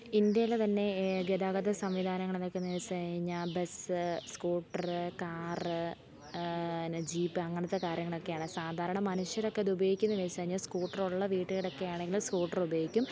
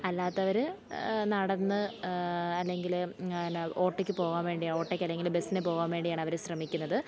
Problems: background sounds at intervals, low volume